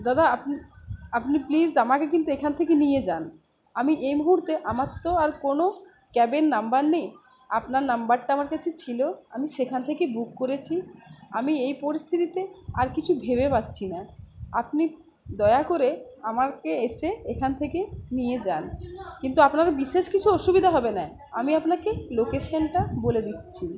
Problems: none marked